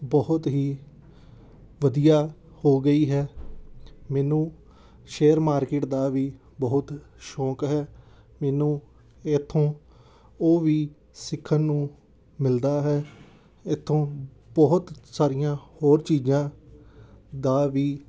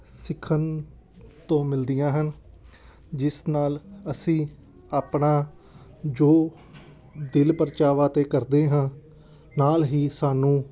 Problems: background sounds at intervals